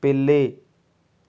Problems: none marked